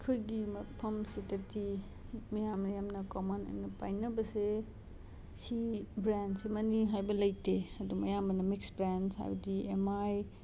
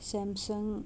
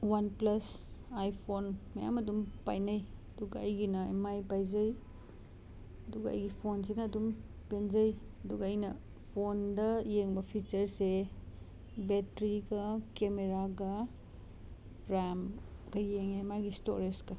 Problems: constant background noise